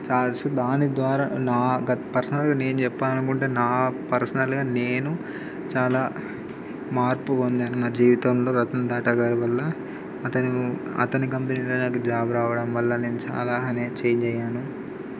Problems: constant background noise